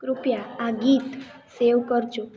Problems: background conversations at intervals